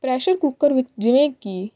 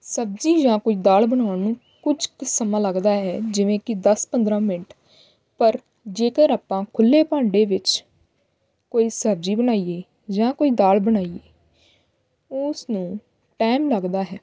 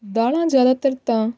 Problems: background sounds at intervals